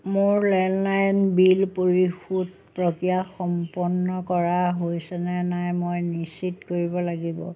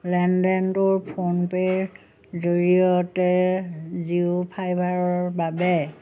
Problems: none marked